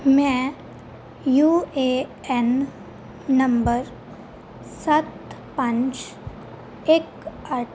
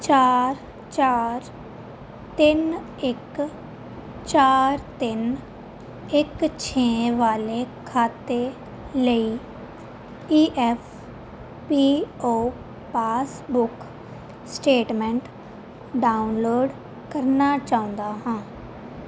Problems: constant background noise